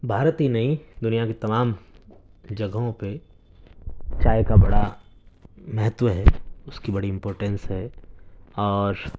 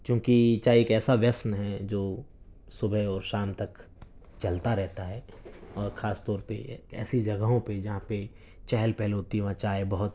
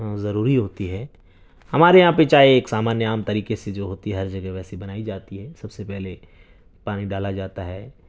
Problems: none marked